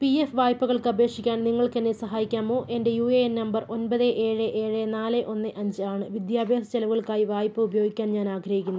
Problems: none marked